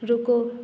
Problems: background sounds at intervals